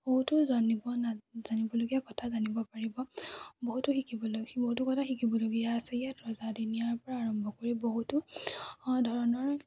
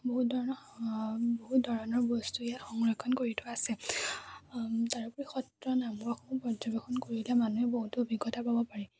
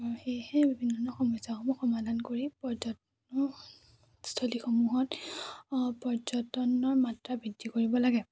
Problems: none marked